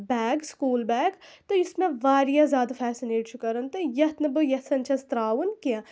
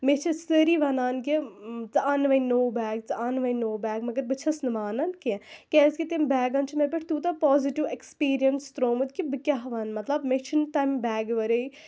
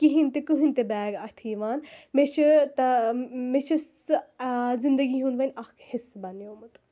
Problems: constant background noise